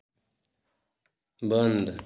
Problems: none marked